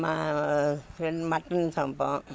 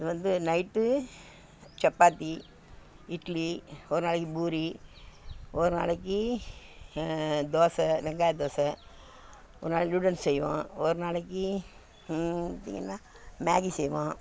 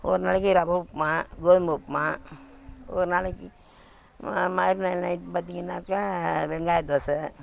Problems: constant background noise